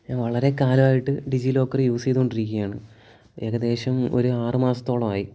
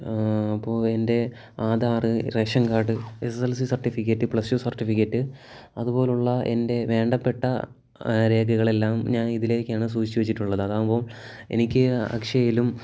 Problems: low volume